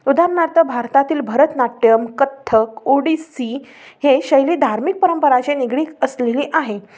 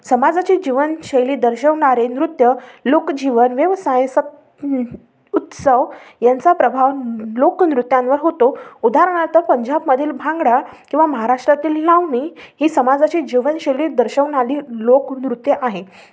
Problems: none marked